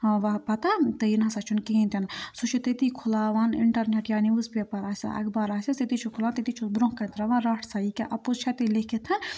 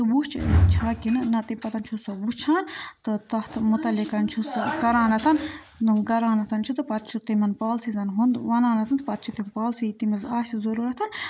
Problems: background conversations at intervals